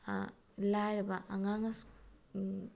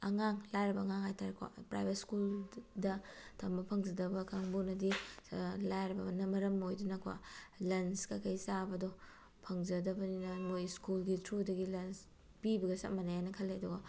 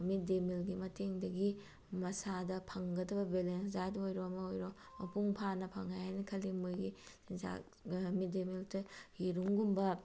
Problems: none marked